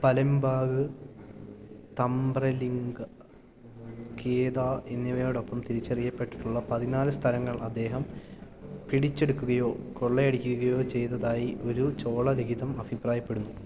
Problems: none marked